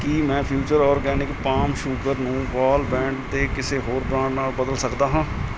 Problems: constant background noise